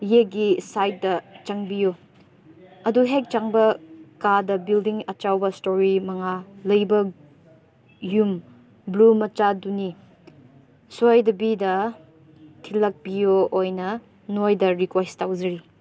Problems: background conversations at intervals